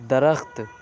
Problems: none marked